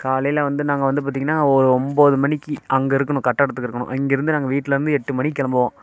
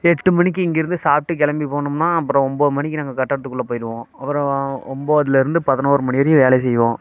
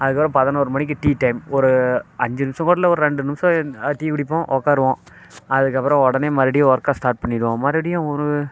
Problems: constant background noise